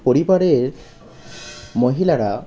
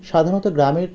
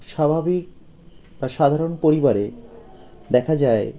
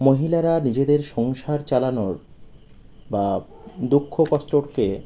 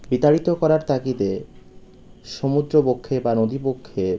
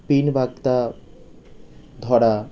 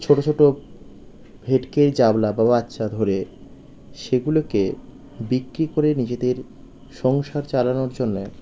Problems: none marked